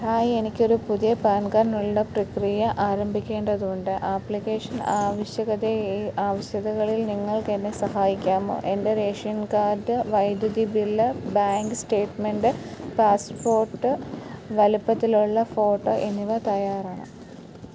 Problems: constant background noise